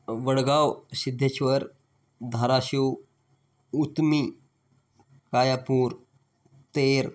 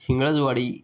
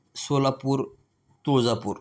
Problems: background sounds at intervals